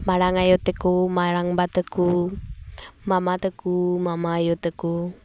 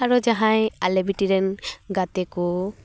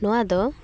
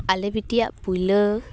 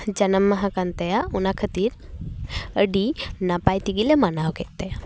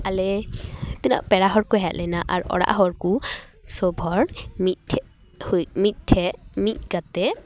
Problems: background sounds at intervals, background conversations at intervals